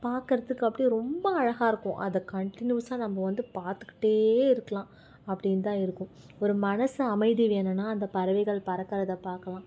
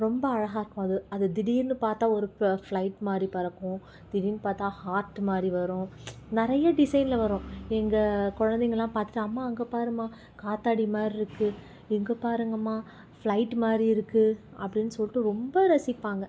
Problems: background sounds at intervals